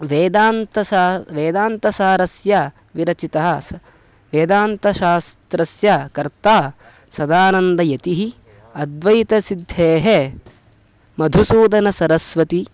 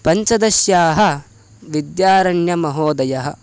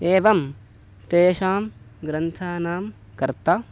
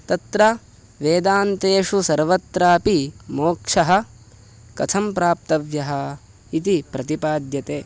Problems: constant background noise